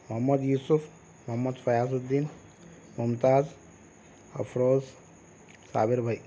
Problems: constant background noise